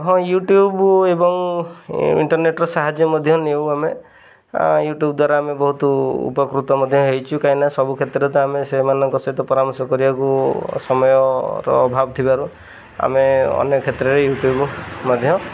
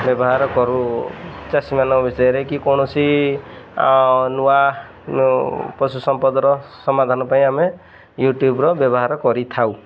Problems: none marked